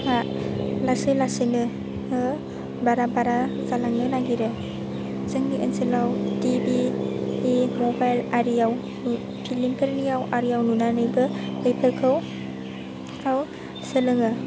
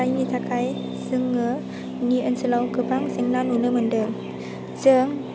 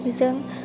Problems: none marked